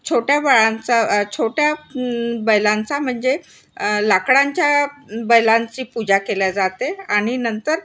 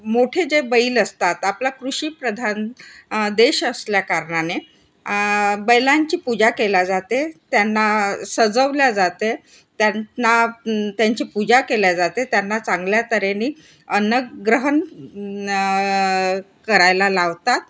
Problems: constant background noise, background conversations at intervals